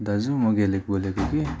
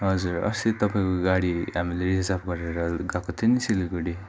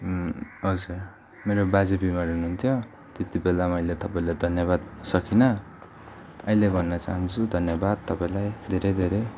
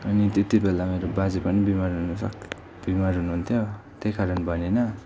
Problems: constant background noise, continuous background conversations